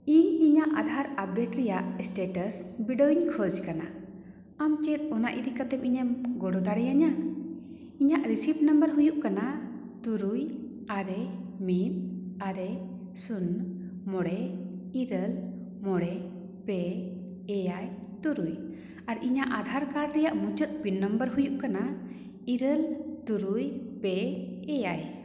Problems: echo